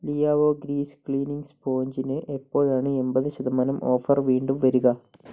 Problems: low volume